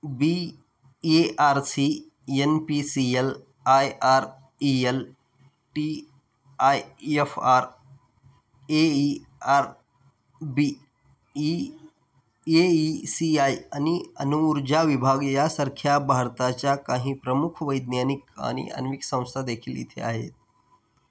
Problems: none marked